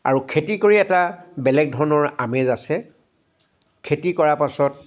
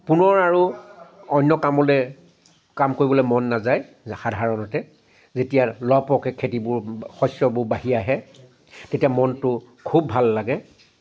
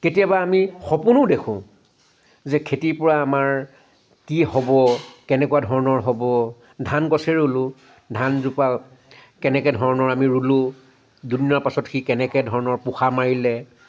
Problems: none marked